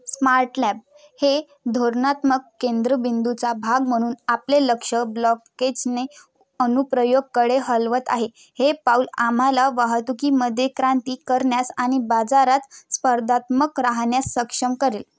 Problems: constant background noise